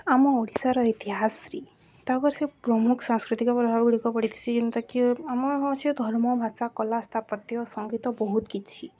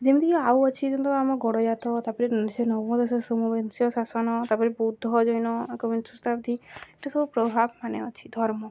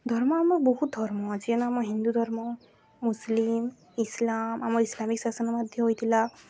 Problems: none marked